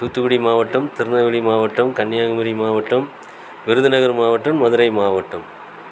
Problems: constant background noise